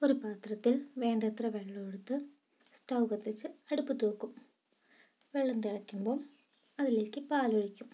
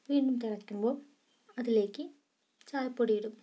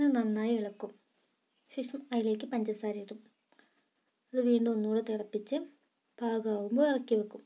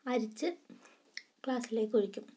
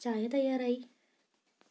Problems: low volume